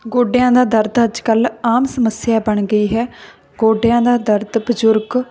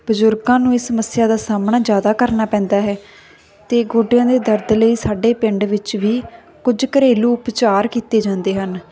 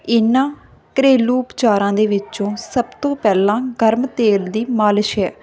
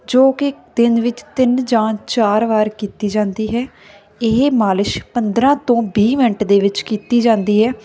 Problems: none marked